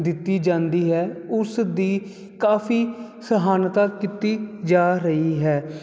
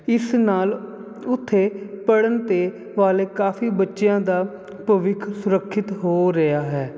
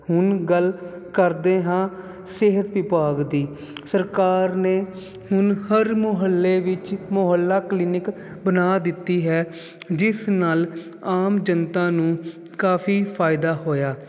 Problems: none marked